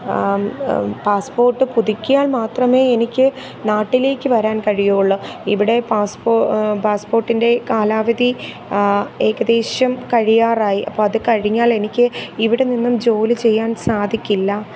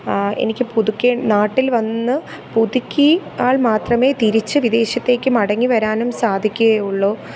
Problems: constant background noise